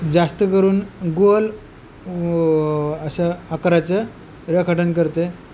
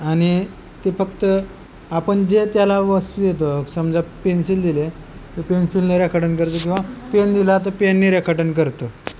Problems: constant background noise